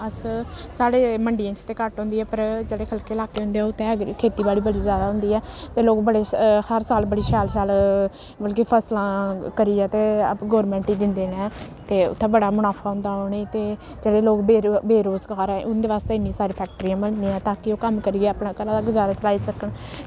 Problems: constant background noise